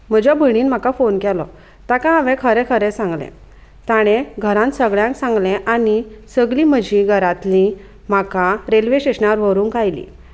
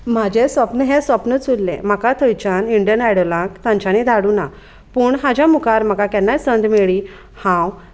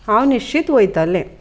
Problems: none marked